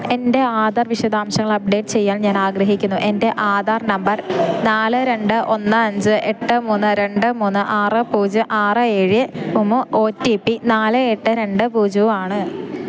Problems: none marked